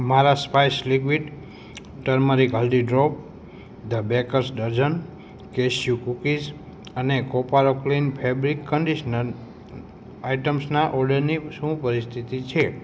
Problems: constant background noise